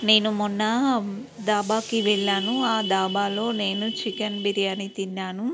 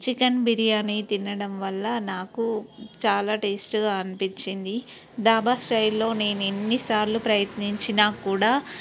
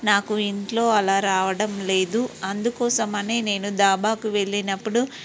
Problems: background sounds at intervals